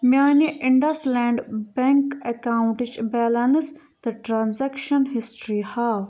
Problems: none marked